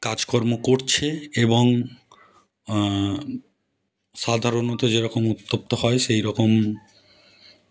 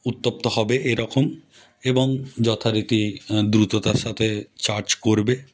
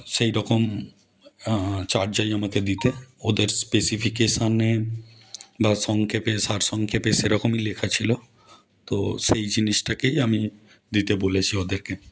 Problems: none marked